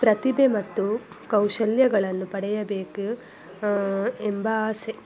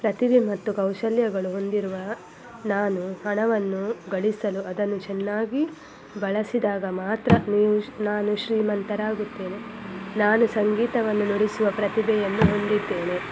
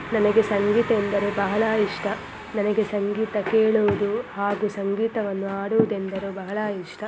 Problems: constant background noise